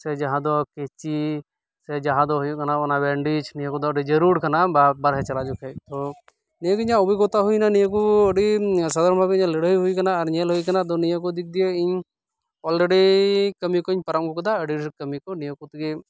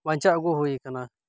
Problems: none marked